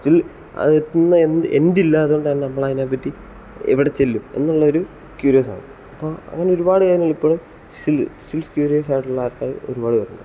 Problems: none marked